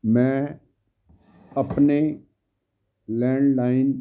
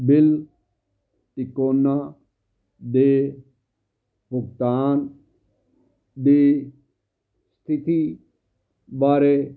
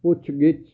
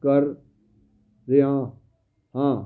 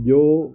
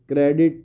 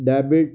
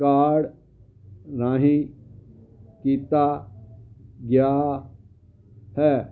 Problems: background sounds at intervals